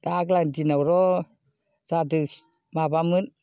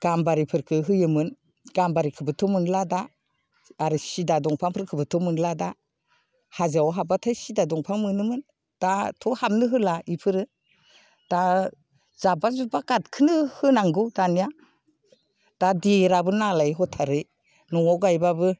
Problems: none marked